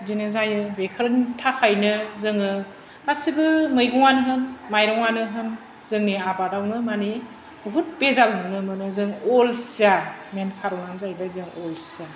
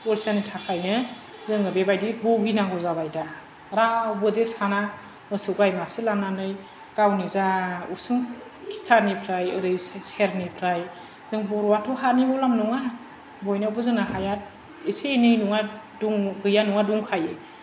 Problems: none marked